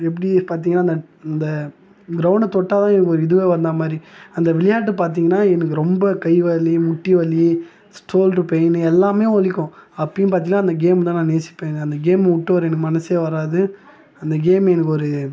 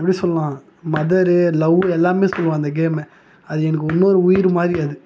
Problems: none marked